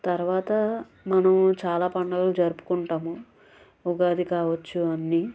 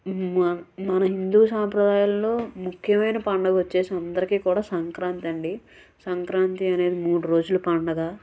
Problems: none marked